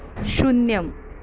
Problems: constant background noise